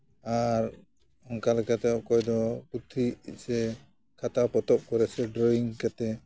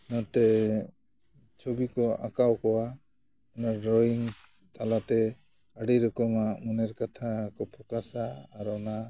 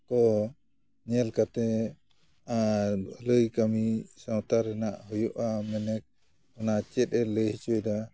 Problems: none marked